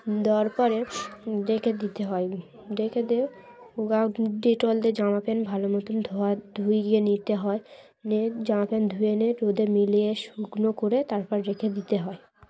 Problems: constant background noise, background conversations at intervals